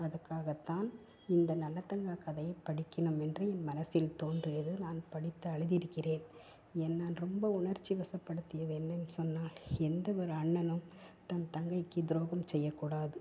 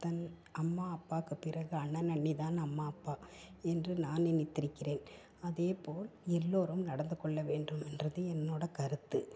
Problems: constant background noise, low volume